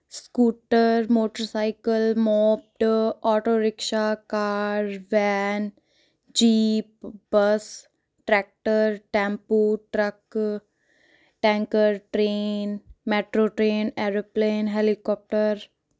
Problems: none marked